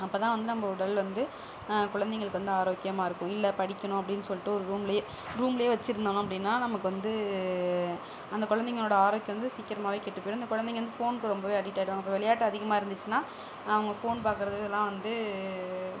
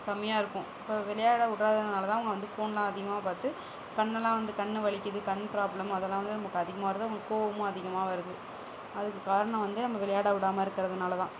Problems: none marked